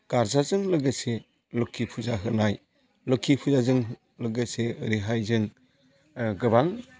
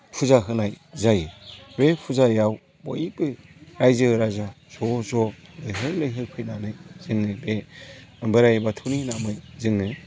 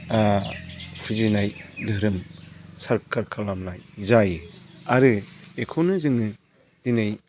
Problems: constant background noise